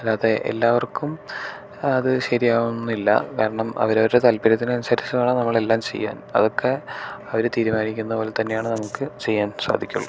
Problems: none marked